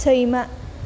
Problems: low volume